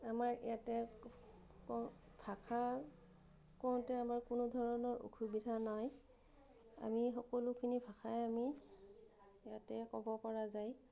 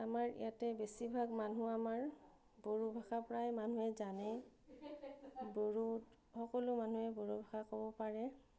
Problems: none marked